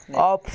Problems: constant background noise, continuous background conversations